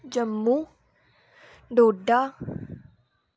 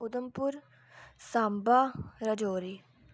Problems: background sounds at intervals